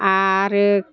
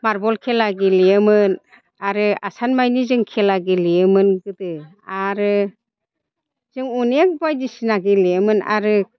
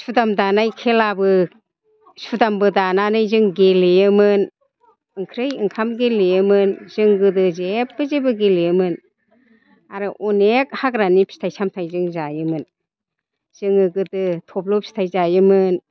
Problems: constant background noise